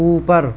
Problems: none marked